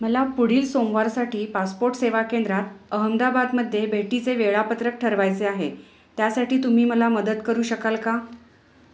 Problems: none marked